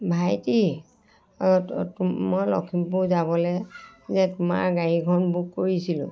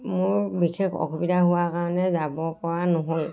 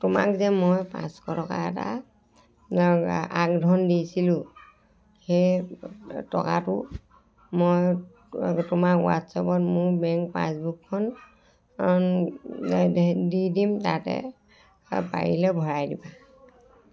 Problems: constant background noise, continuous background conversations